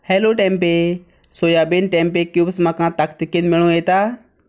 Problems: none marked